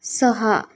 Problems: constant background noise